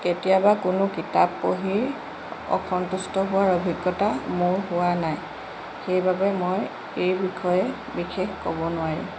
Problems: constant background noise